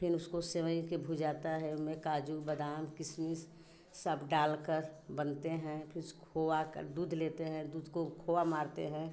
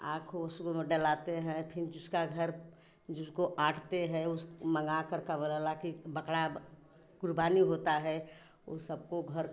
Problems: none marked